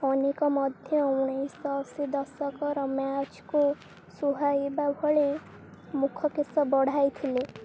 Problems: constant background noise